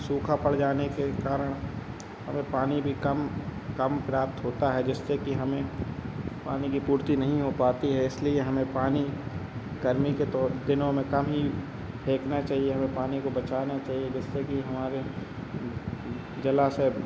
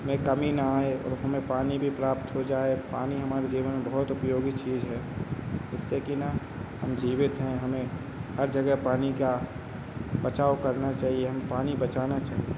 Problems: constant background noise, background conversations at intervals